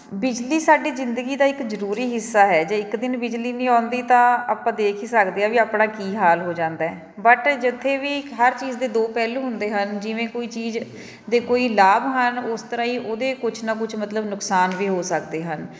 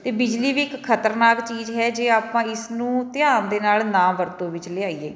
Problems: background sounds at intervals, background conversations at intervals